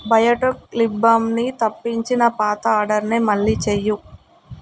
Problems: none marked